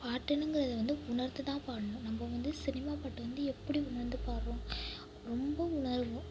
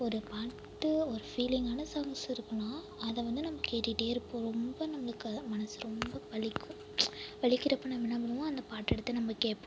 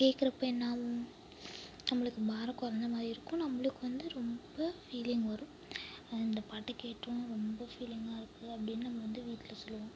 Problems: background sounds at intervals, low volume